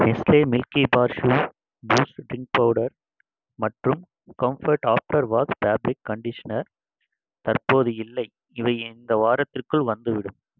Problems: constant background noise